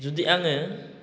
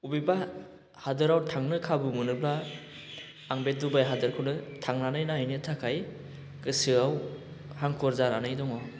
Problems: none marked